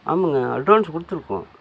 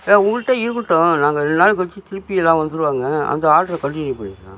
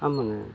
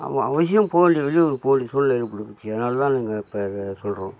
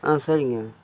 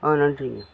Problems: constant background noise